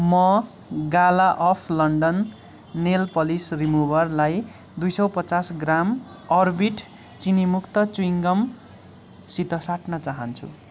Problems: none marked